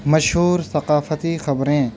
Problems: none marked